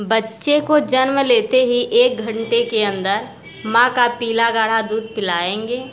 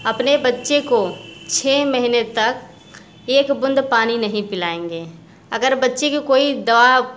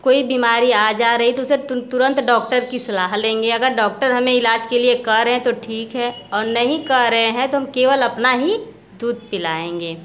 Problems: constant background noise, background conversations at intervals